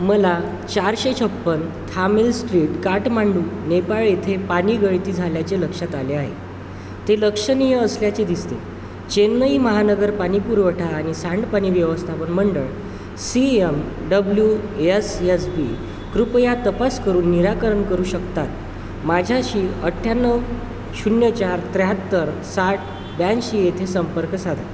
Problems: constant background noise